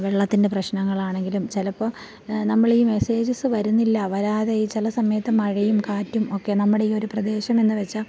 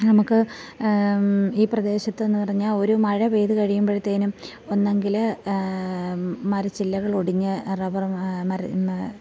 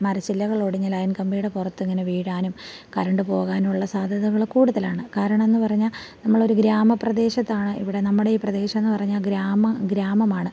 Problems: none marked